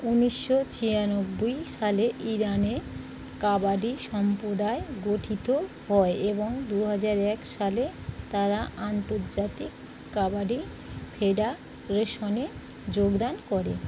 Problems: none marked